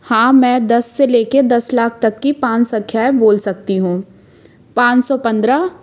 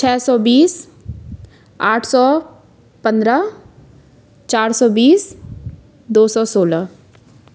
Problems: constant background noise